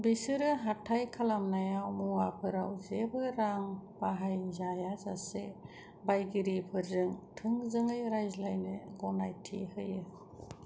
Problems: low volume